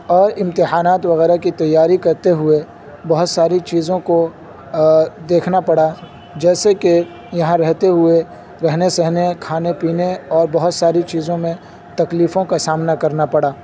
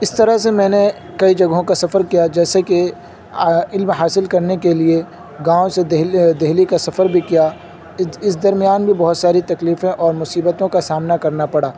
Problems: constant background noise